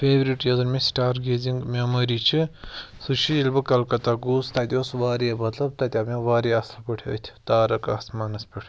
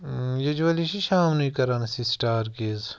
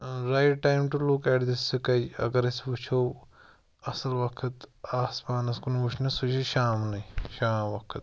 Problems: background sounds at intervals